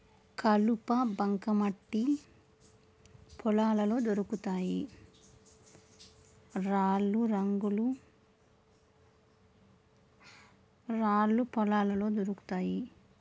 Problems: none marked